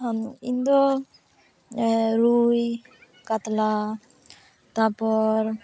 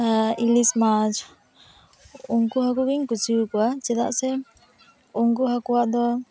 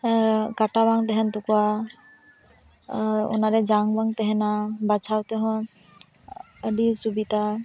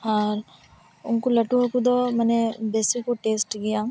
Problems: constant background noise, continuous background conversations